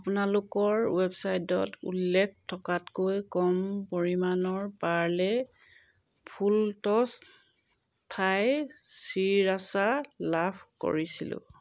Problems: none marked